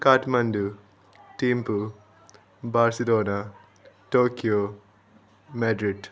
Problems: constant background noise